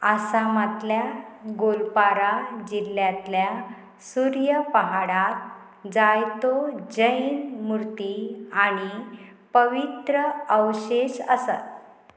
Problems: none marked